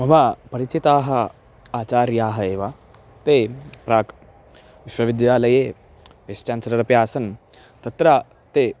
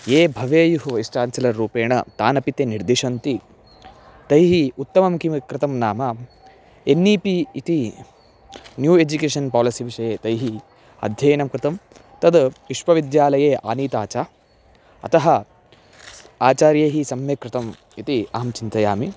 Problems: background sounds at intervals